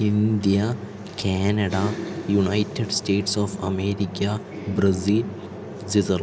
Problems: background sounds at intervals